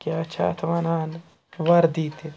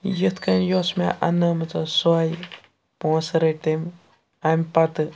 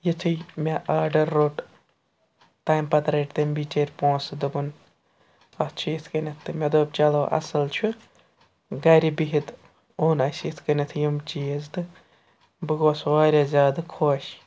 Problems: constant background noise